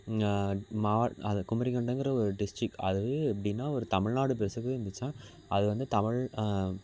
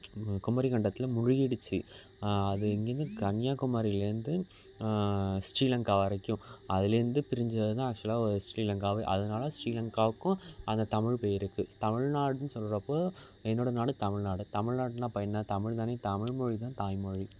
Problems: background sounds at intervals